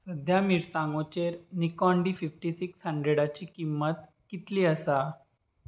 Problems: constant background noise